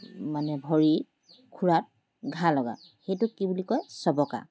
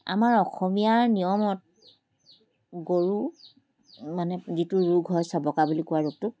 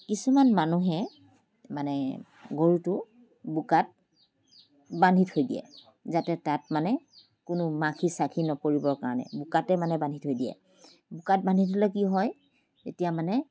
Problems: none marked